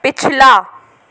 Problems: none marked